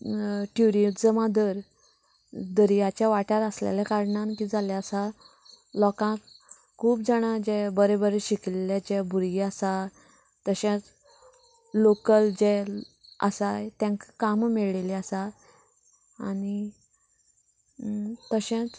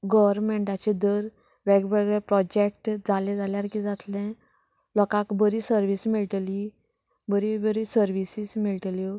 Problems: background sounds at intervals